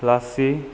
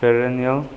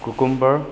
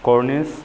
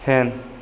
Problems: background sounds at intervals